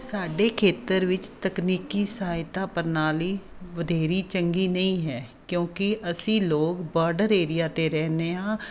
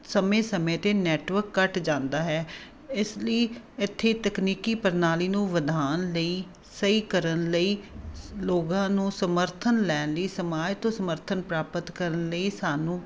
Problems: constant background noise